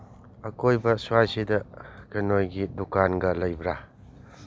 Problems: none marked